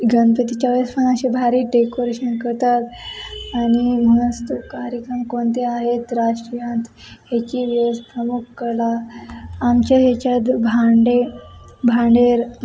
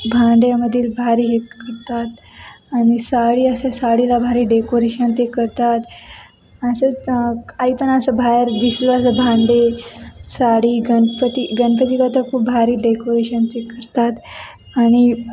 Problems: constant background noise, background conversations at intervals